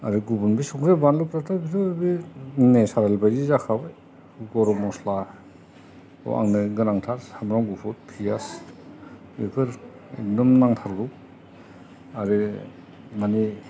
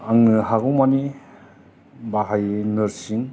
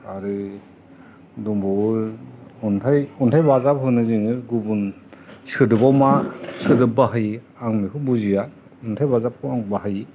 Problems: constant background noise, background conversations at intervals